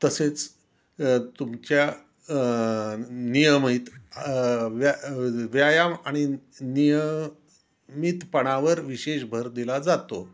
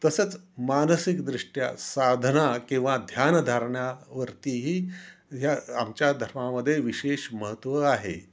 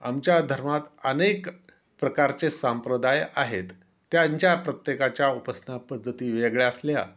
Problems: constant background noise